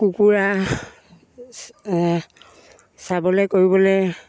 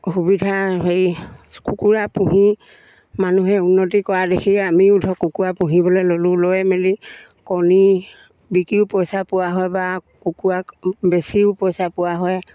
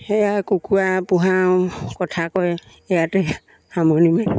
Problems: none marked